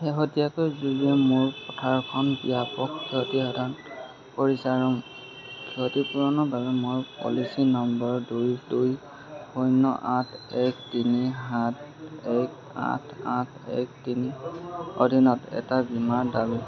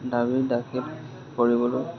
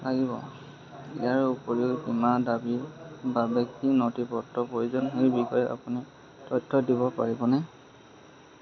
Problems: constant background noise, background conversations at intervals